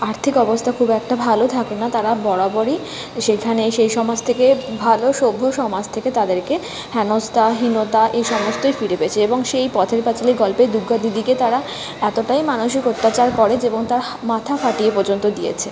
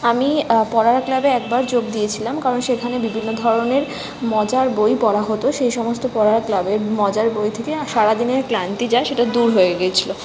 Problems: constant background noise